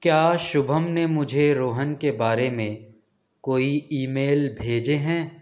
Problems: none marked